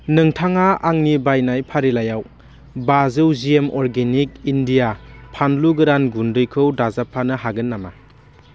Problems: constant background noise